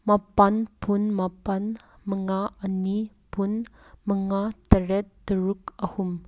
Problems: background sounds at intervals